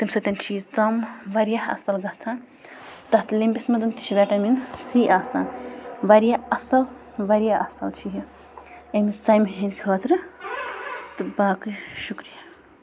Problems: constant background noise